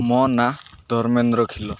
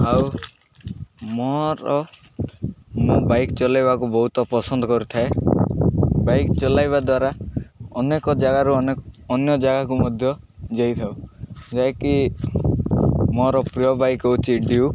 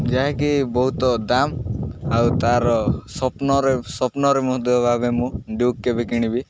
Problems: none marked